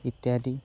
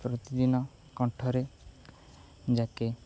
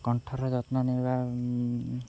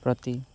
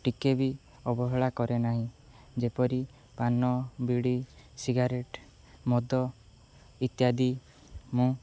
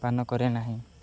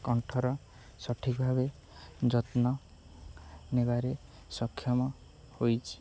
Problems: none marked